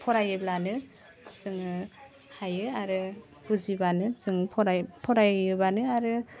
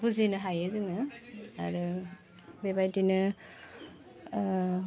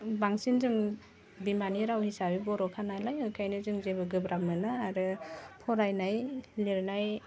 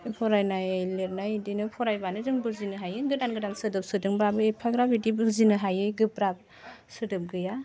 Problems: constant background noise